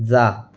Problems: none marked